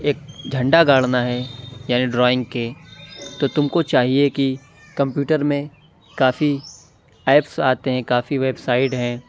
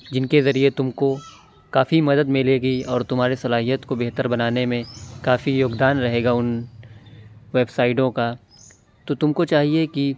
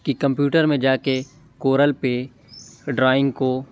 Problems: constant background noise